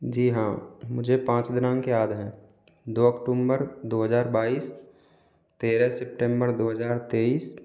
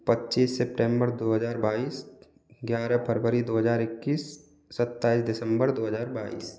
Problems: constant background noise